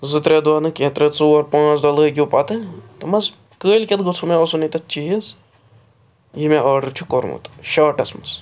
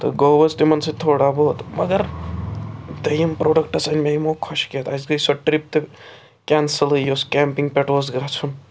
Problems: constant background noise